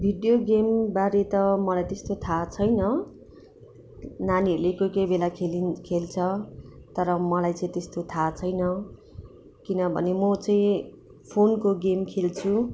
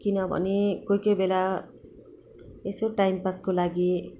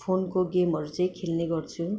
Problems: background sounds at intervals